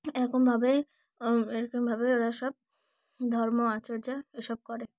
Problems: none marked